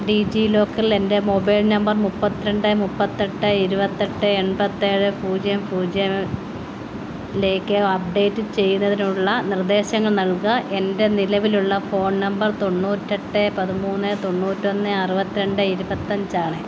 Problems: constant background noise